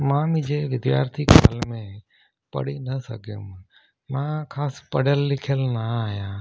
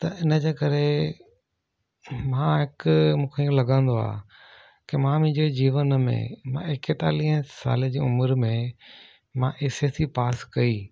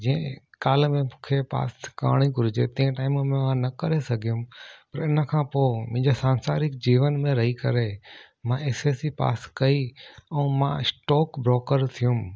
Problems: none marked